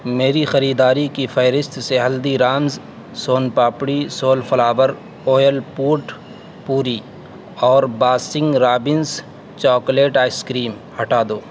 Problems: constant background noise